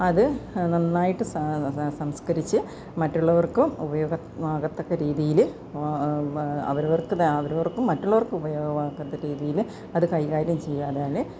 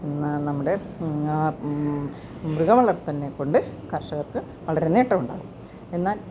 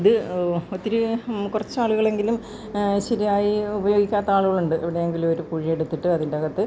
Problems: background sounds at intervals